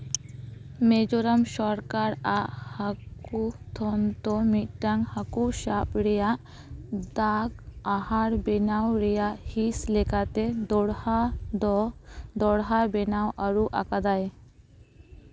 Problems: background sounds at intervals